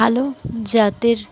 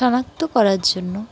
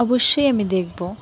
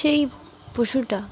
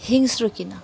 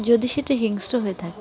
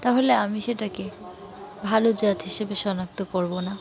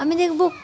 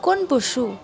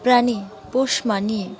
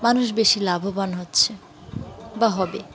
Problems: none marked